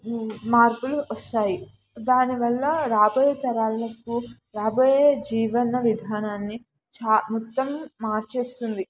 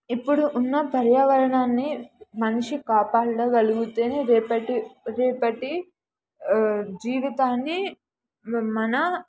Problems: background sounds at intervals, background conversations at intervals